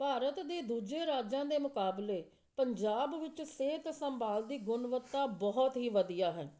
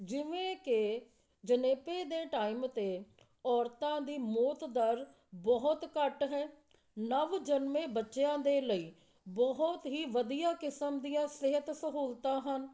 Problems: constant background noise, background conversations at intervals